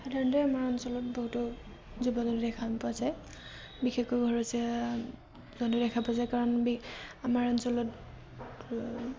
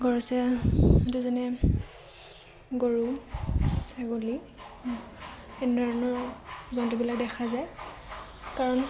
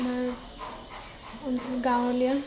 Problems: constant background noise